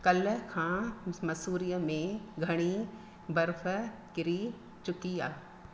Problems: constant background noise, echo